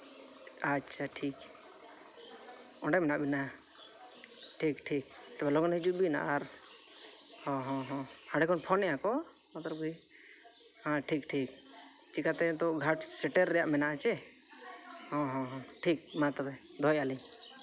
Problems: constant background noise, background conversations at intervals